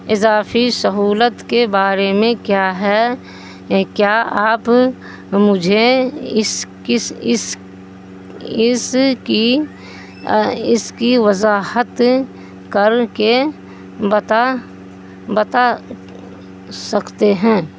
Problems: constant background noise